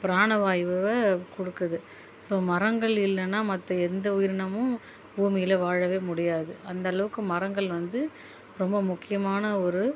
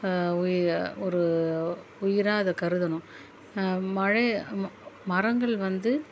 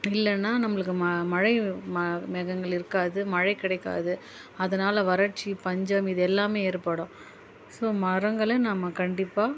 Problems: background sounds at intervals